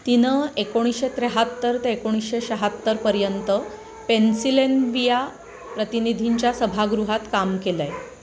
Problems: none marked